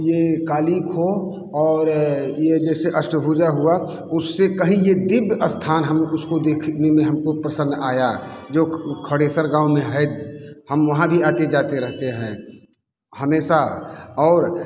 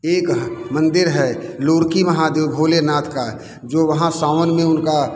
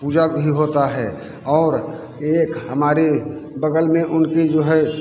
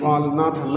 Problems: constant background noise